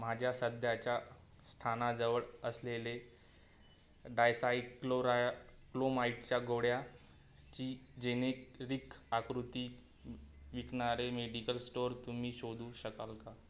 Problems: constant background noise